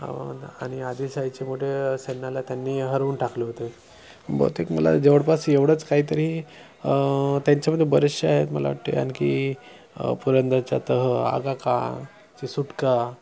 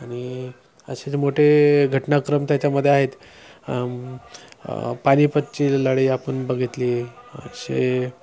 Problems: none marked